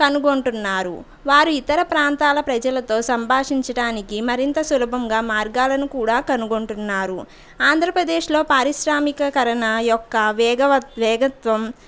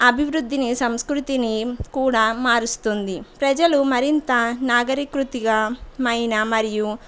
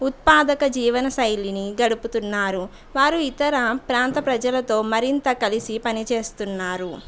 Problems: background sounds at intervals